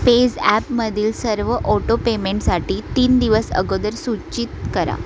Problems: constant background noise, background conversations at intervals